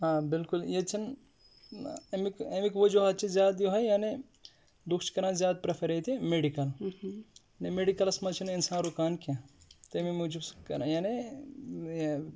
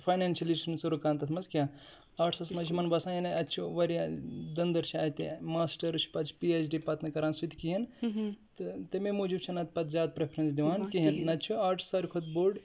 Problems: background sounds at intervals